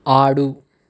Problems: none marked